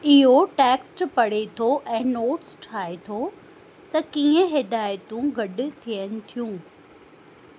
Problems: constant background noise, echo